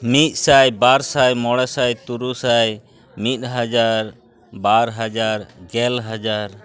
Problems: background sounds at intervals, background conversations at intervals